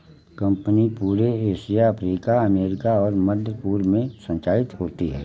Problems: none marked